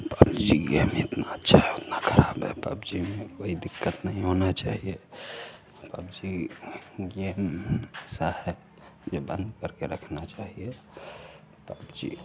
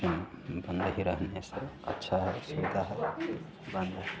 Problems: low volume